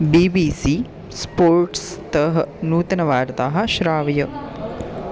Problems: background sounds at intervals